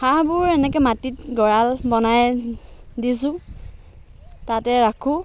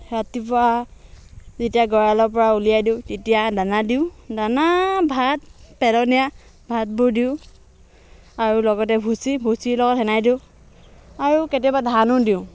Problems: background sounds at intervals